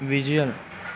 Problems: constant background noise, background conversations at intervals